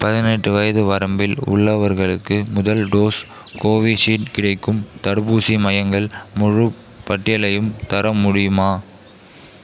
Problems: background conversations at intervals